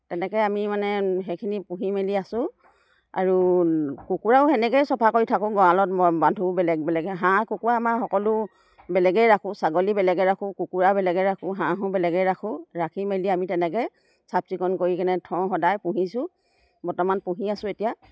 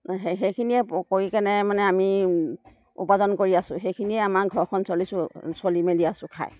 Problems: none marked